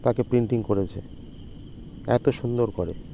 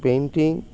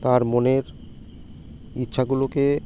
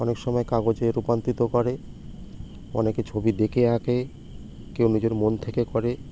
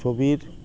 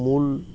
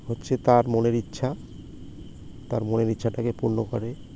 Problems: constant background noise